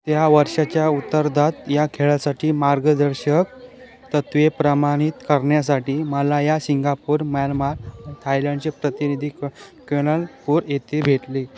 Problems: continuous background conversations